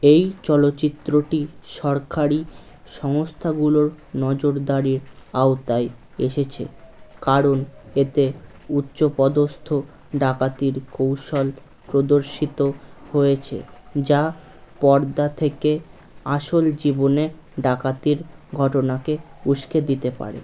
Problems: constant background noise